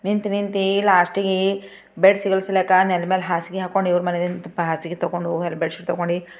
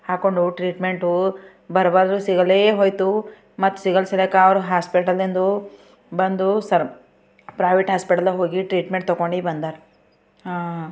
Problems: background sounds at intervals